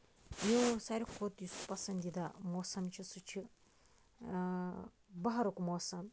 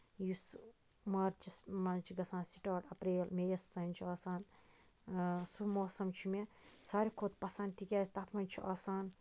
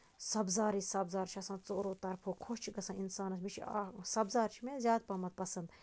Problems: none marked